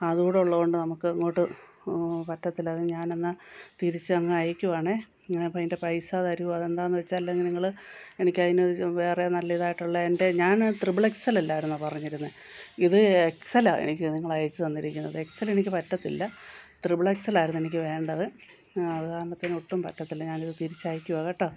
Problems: background sounds at intervals